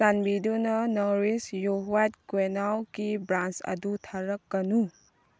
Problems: background sounds at intervals